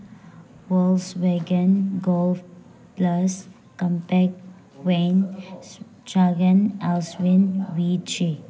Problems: background sounds at intervals